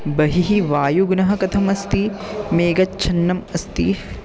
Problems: background sounds at intervals